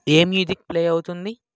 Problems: none marked